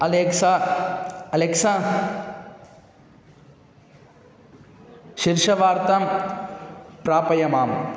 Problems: constant background noise